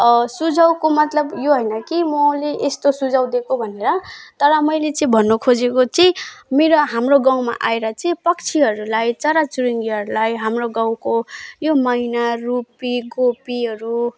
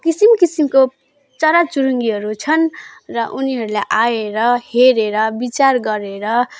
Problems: background sounds at intervals